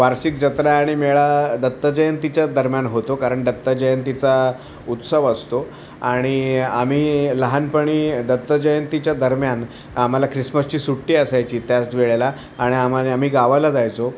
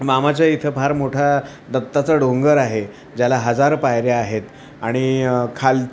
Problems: constant background noise, continuous background conversations